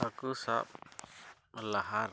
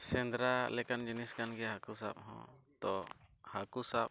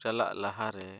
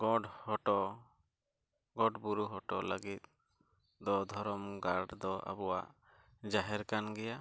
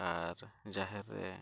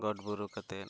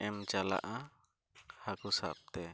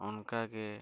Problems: background sounds at intervals, low volume